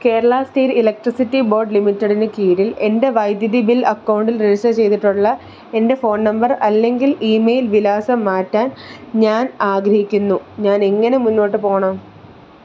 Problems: background sounds at intervals